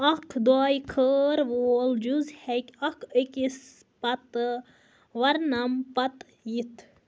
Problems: background sounds at intervals